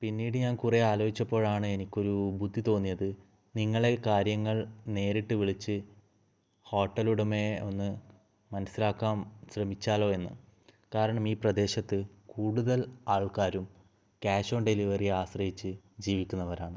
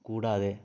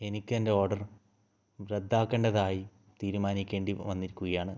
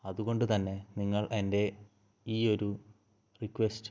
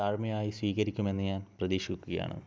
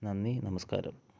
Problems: low volume